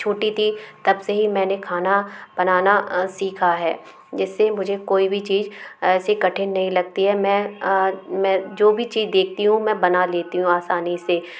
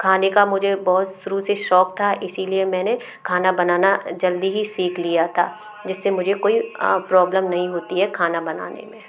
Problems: constant background noise, background conversations at intervals